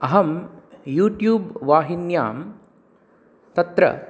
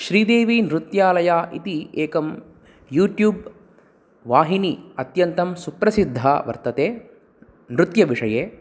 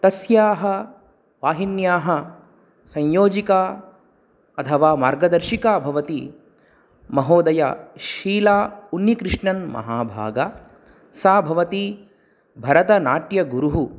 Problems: none marked